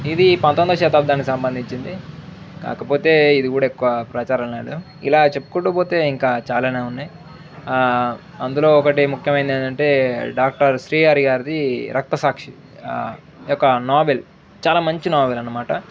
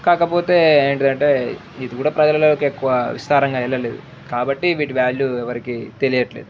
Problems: background sounds at intervals